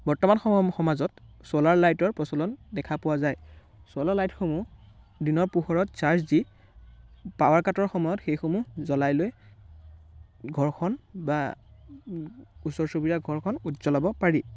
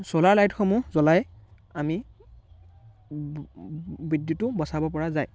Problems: background sounds at intervals, background conversations at intervals